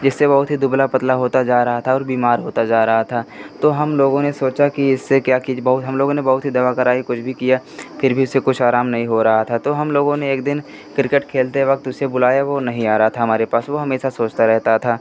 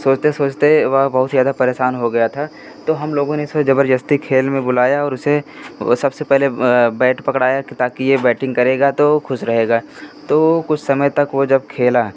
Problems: constant background noise